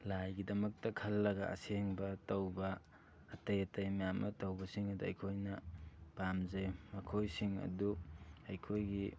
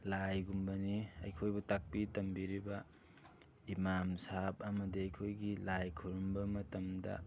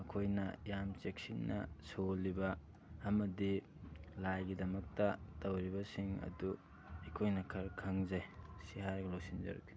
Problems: background sounds at intervals, background conversations at intervals